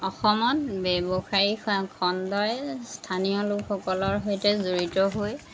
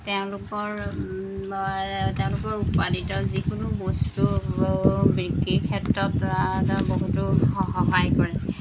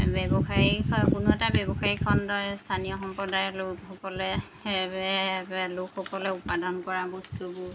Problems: constant background noise